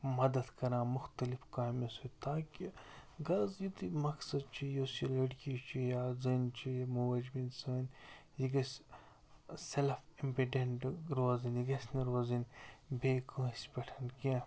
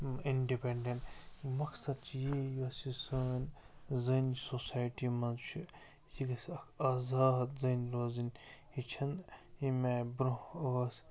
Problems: constant background noise, low volume